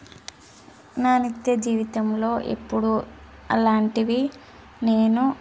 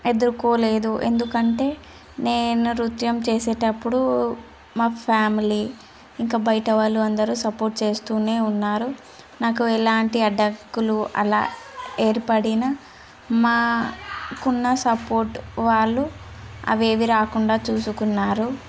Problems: constant background noise